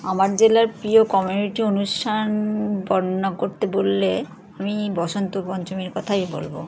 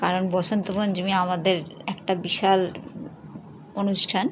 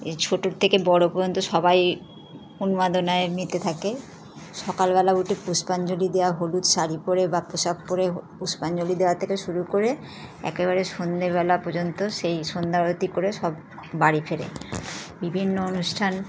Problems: constant background noise, continuous background conversations